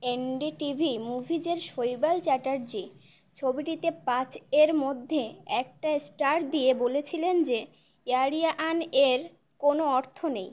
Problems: background sounds at intervals